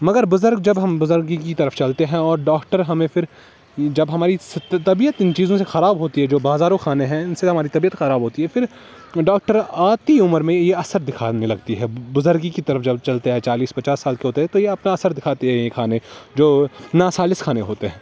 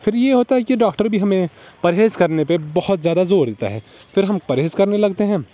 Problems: constant background noise